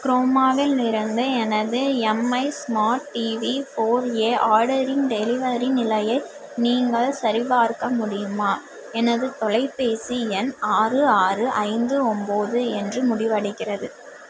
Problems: background sounds at intervals